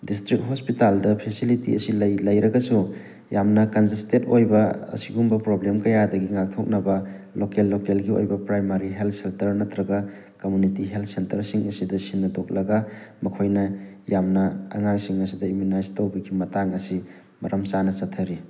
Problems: background sounds at intervals